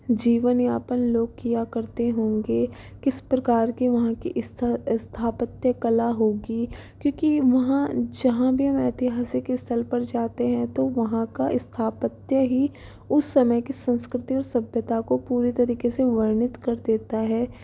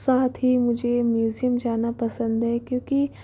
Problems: background sounds at intervals